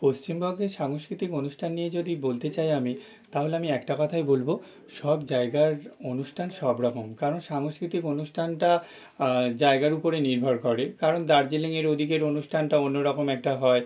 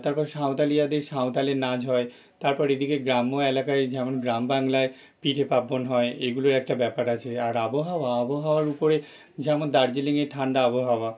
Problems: none marked